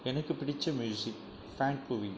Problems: low volume